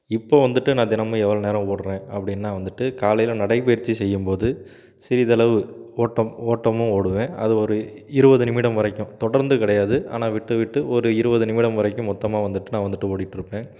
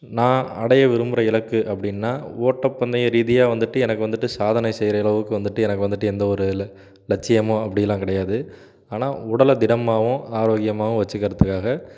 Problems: background sounds at intervals